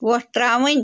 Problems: none marked